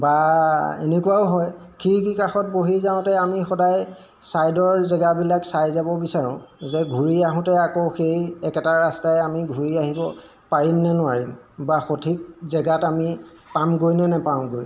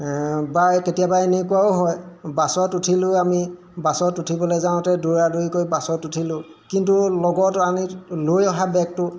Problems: background sounds at intervals